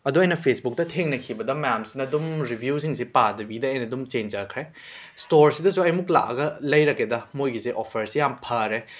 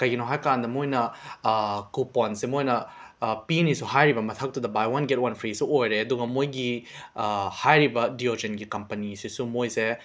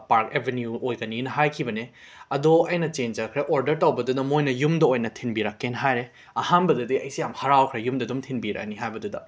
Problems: background sounds at intervals